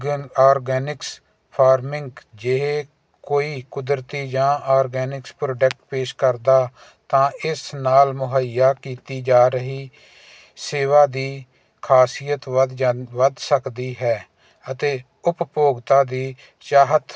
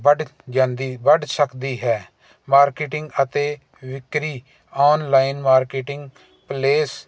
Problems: none marked